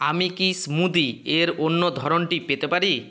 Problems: constant background noise